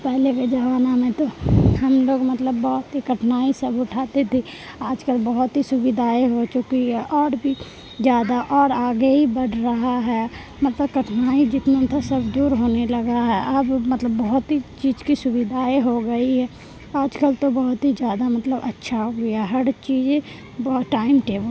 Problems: constant background noise